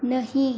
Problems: constant background noise